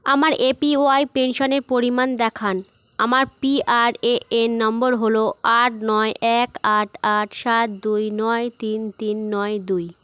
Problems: constant background noise